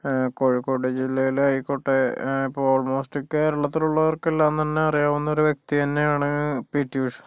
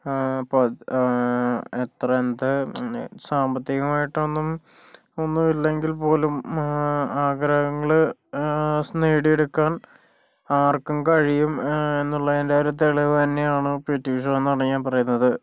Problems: none marked